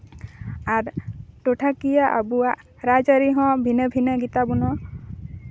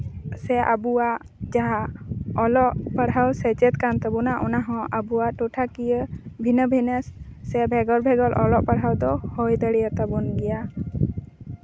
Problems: constant background noise